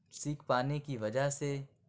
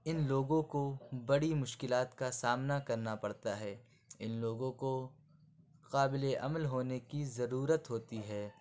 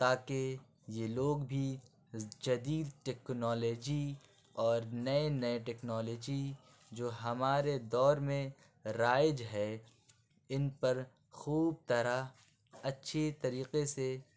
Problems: constant background noise